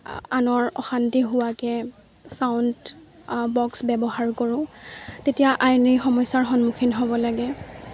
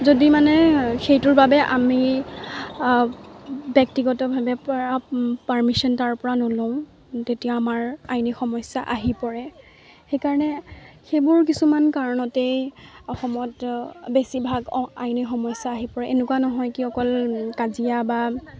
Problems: constant background noise, background conversations at intervals